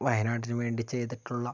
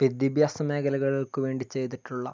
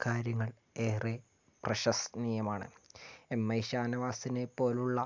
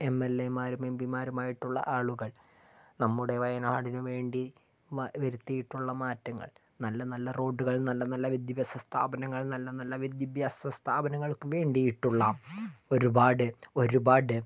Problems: none marked